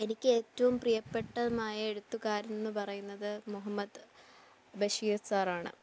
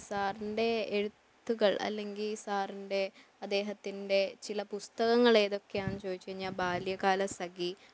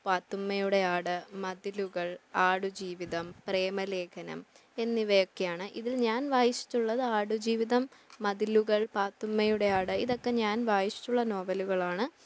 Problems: low volume